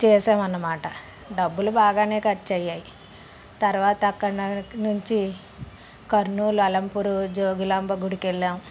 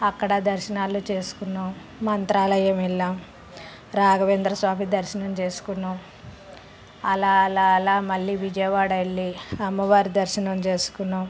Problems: constant background noise, background conversations at intervals